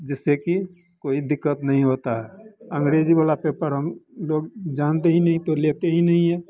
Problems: constant background noise